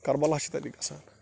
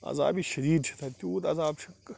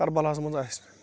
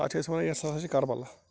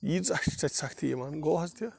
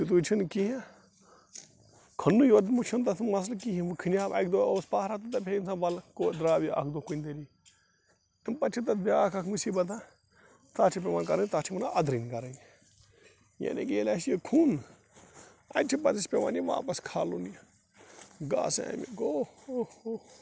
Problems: constant background noise